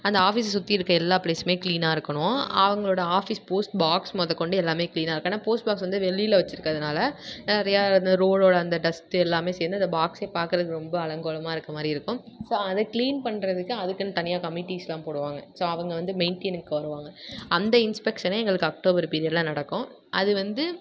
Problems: none marked